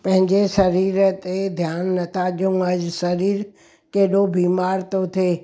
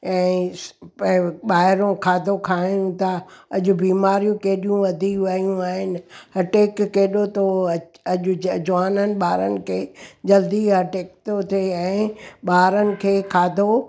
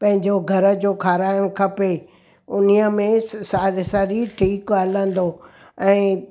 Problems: background sounds at intervals